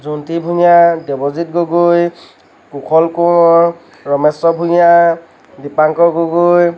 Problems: constant background noise